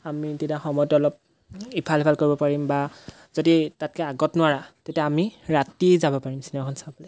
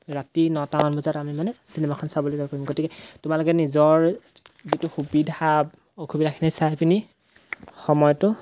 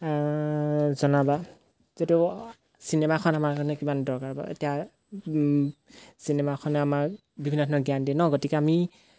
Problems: background sounds at intervals